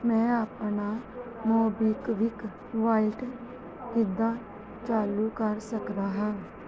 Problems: background sounds at intervals